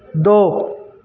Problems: background sounds at intervals